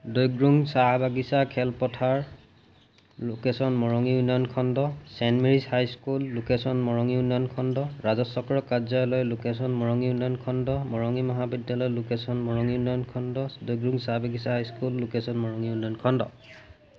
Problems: none marked